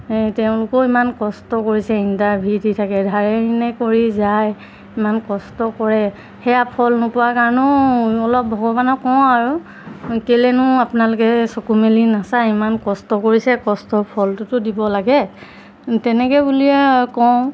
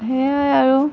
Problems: constant background noise